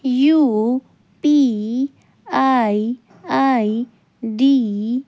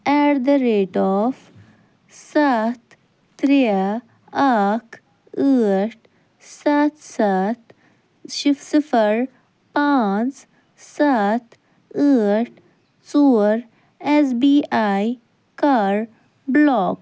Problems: none marked